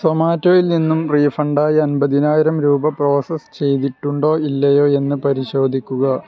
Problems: continuous background conversations